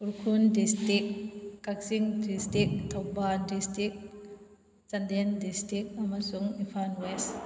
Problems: background sounds at intervals